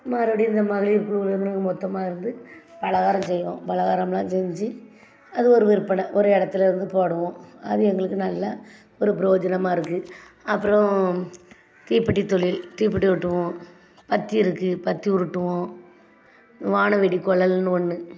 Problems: background sounds at intervals, background conversations at intervals